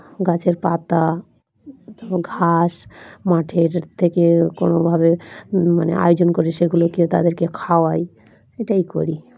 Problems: background sounds at intervals, continuous background conversations